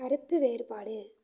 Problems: low volume